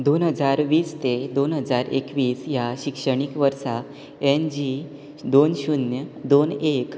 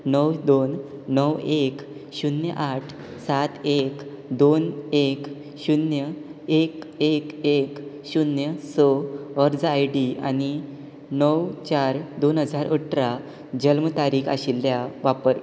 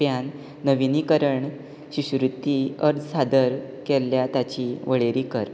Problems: none marked